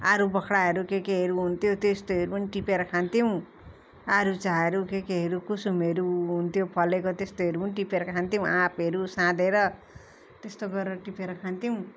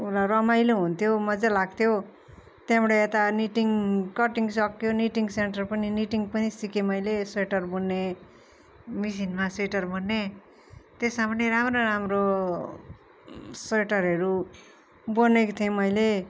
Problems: constant background noise